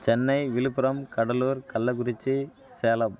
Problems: constant background noise